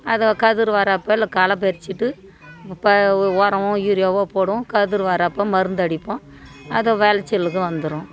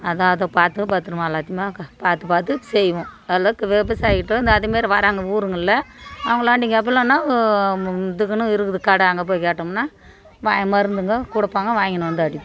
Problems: continuous background conversations